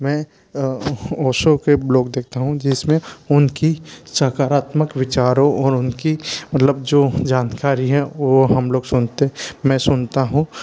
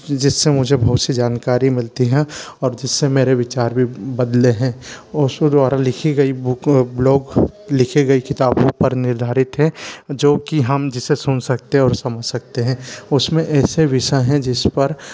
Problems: none marked